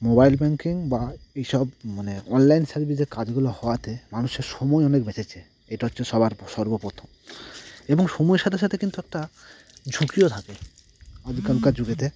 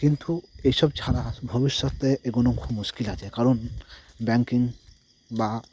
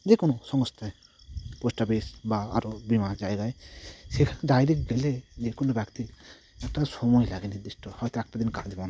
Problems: constant background noise